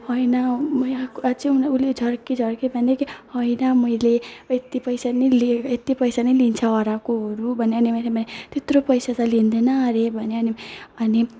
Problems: background sounds at intervals, background conversations at intervals, low volume